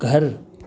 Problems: none marked